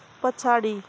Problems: constant background noise